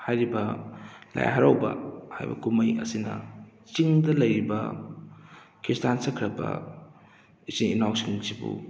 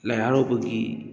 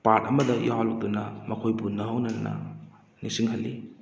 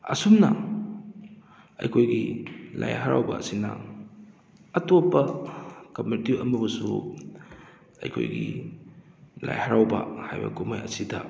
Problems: background sounds at intervals